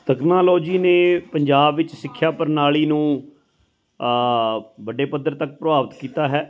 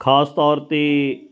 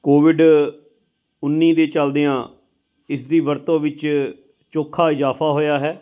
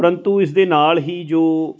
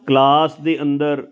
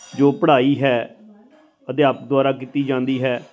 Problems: constant background noise, background conversations at intervals